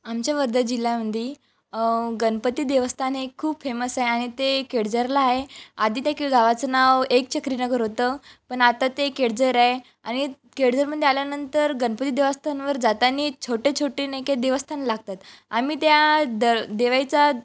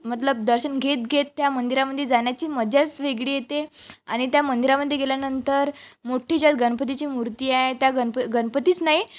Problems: none marked